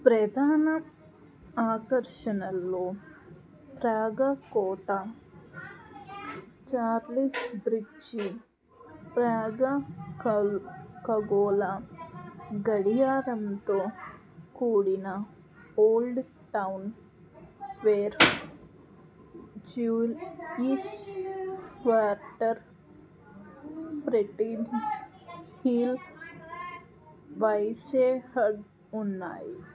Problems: background conversations at intervals